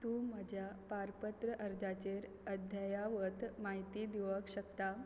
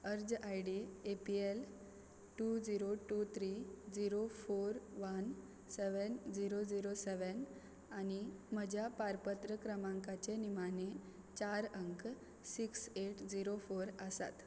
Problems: background sounds at intervals